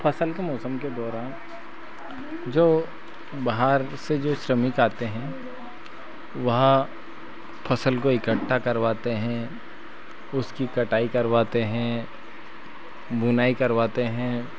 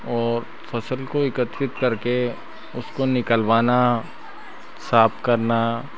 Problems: constant background noise